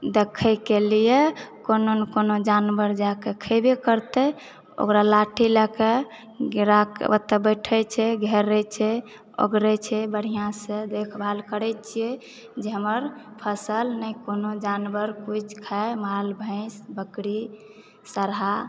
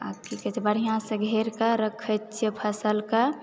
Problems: background conversations at intervals